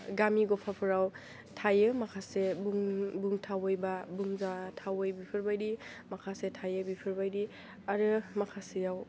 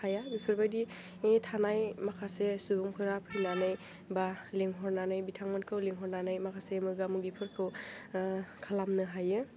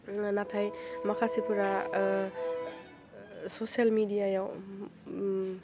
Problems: low volume